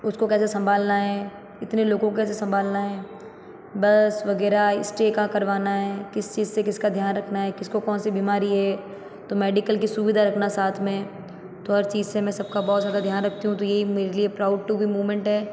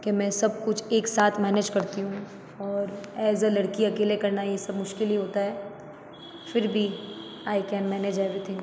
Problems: echo